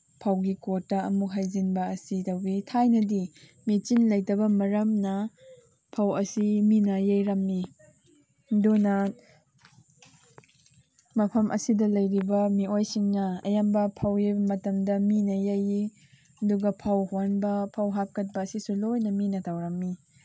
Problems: background sounds at intervals